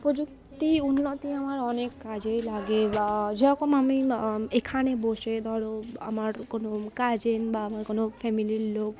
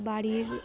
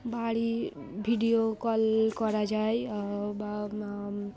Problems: constant background noise, continuous background conversations